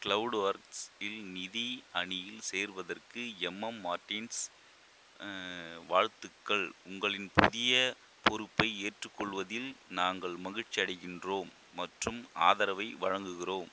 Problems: constant background noise